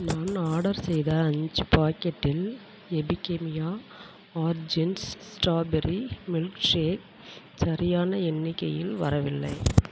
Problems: constant background noise